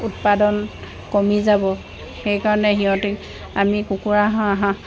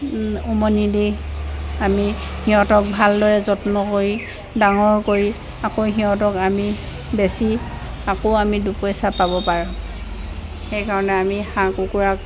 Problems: none marked